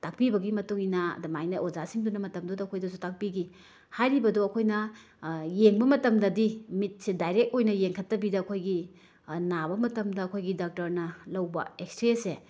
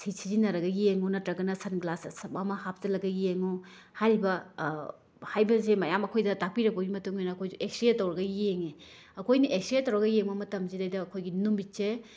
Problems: background sounds at intervals